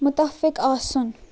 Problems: constant background noise